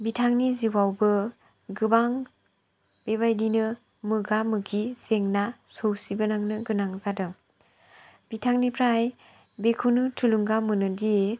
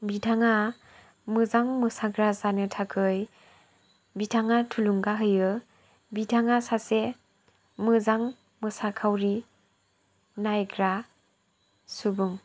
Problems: low volume